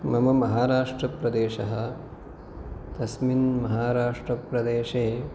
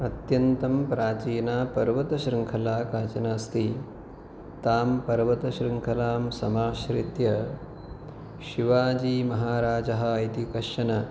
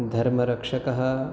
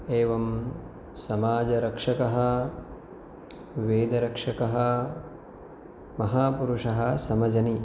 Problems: none marked